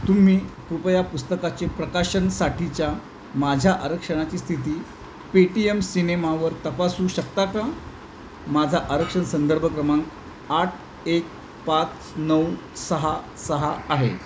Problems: constant background noise